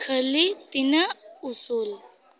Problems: constant background noise